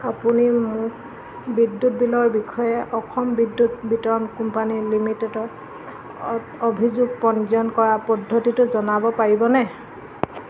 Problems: constant background noise